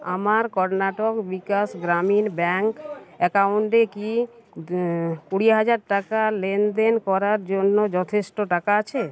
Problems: constant background noise, background conversations at intervals